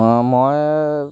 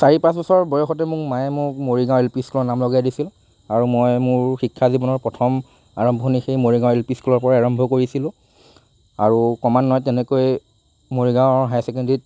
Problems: constant background noise